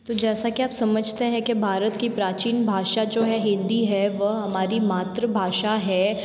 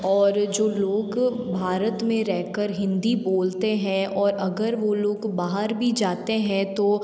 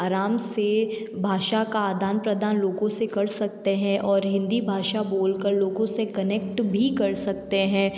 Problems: background sounds at intervals